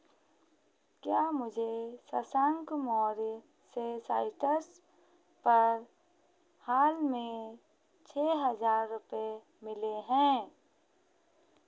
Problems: none marked